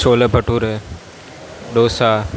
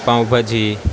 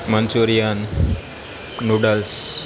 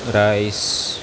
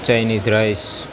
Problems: none marked